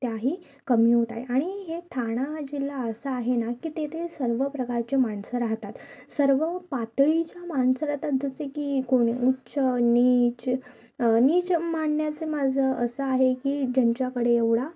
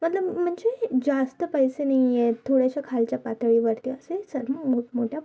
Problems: none marked